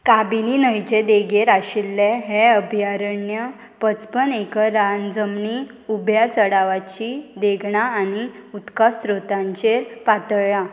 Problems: constant background noise